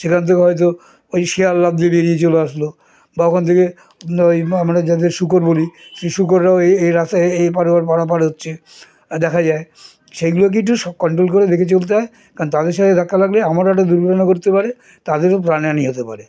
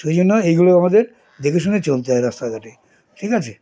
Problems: continuous background conversations